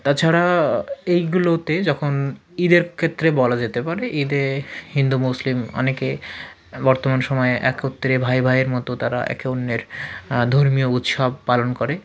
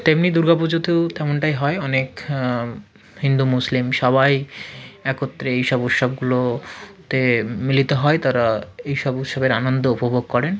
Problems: none marked